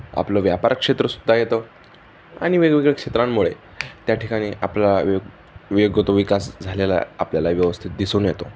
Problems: constant background noise